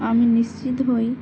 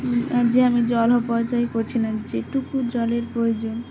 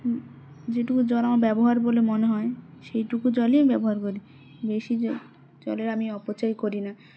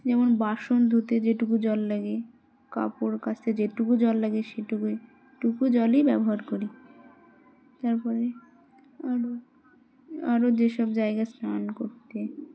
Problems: constant background noise